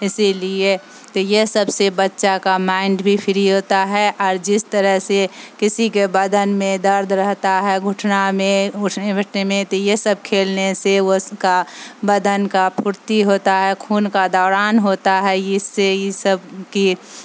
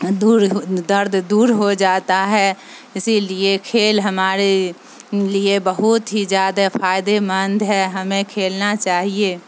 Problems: constant background noise